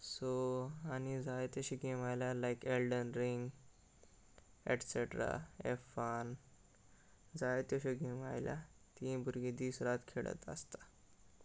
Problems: constant background noise